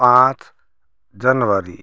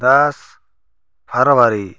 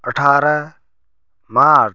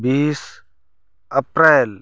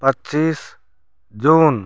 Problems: none marked